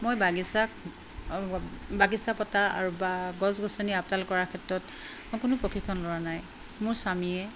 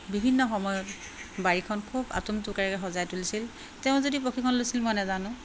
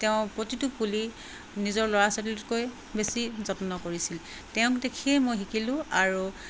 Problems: constant background noise